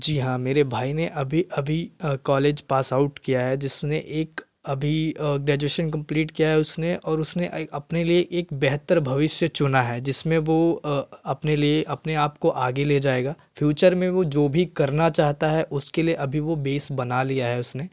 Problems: none marked